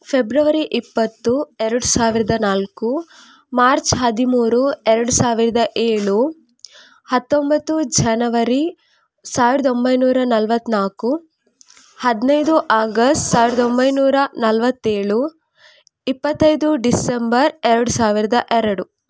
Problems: none marked